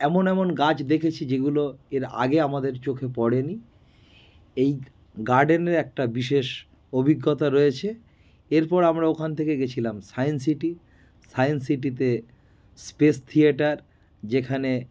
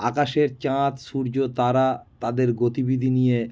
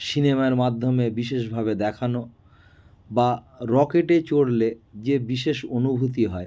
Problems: constant background noise